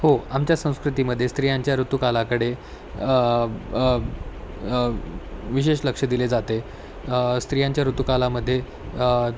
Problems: constant background noise